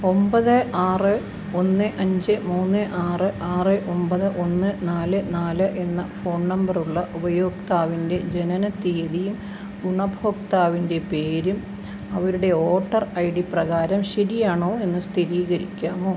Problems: none marked